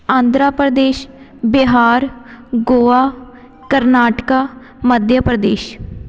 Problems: background sounds at intervals, background conversations at intervals